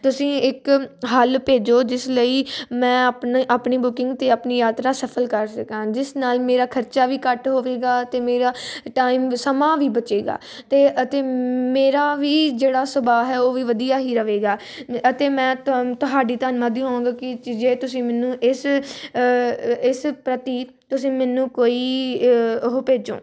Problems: constant background noise